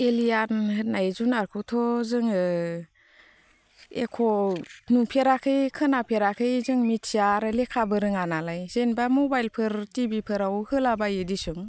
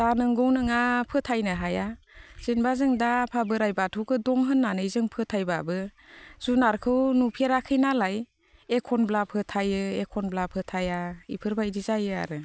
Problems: constant background noise